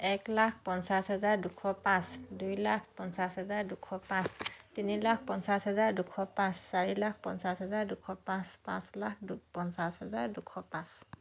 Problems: none marked